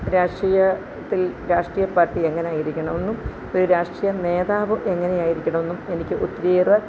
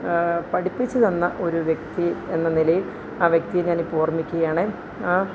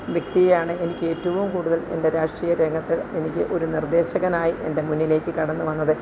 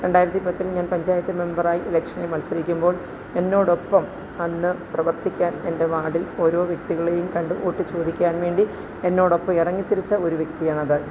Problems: none marked